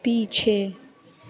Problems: constant background noise